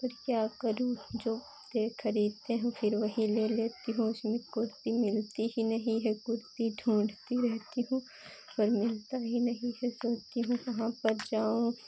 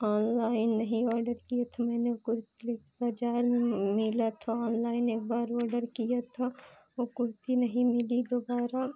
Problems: none marked